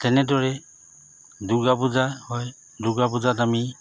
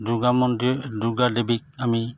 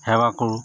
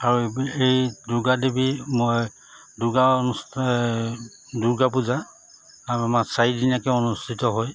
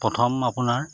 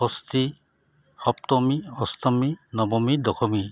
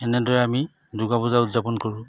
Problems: constant background noise